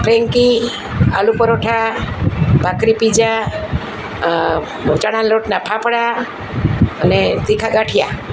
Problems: constant background noise